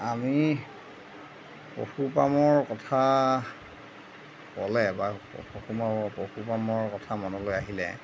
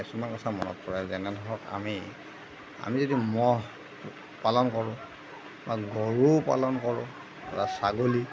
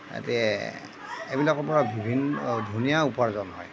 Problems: none marked